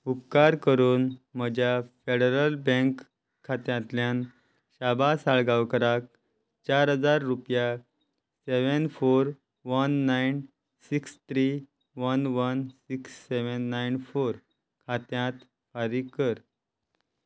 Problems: none marked